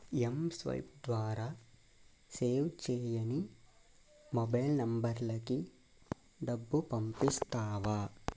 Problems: low volume